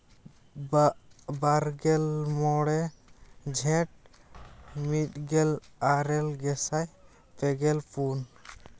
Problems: constant background noise, background conversations at intervals